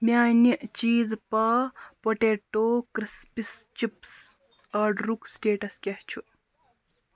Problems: constant background noise